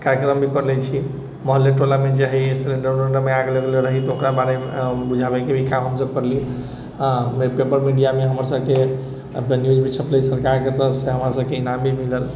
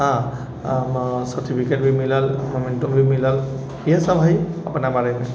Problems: none marked